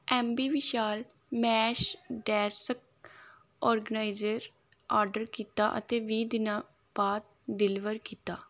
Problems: background sounds at intervals